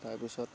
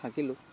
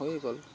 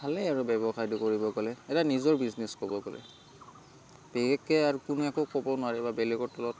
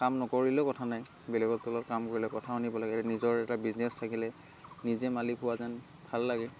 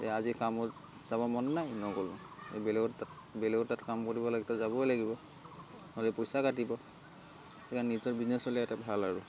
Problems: constant background noise, continuous background conversations